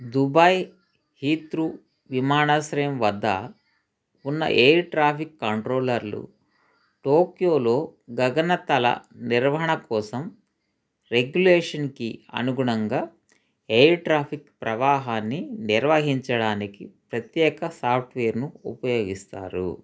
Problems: background conversations at intervals